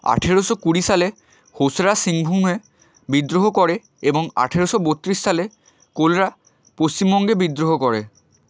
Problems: constant background noise